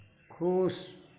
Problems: none marked